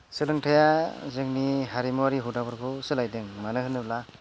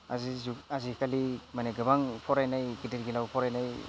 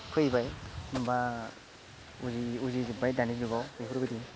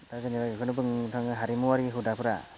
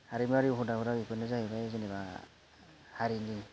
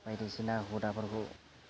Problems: none marked